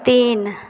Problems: constant background noise